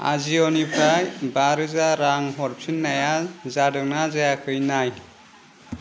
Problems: constant background noise